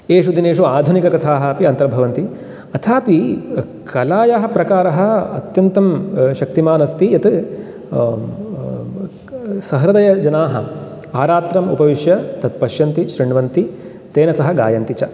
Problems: none marked